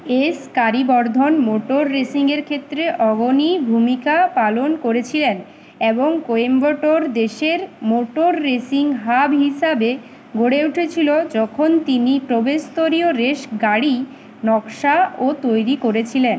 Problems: constant background noise